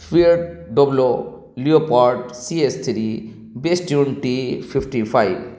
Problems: none marked